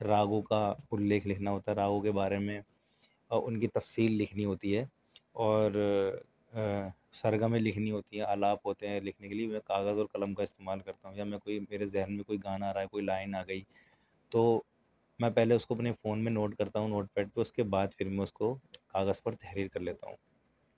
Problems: none marked